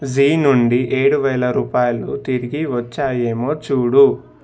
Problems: none marked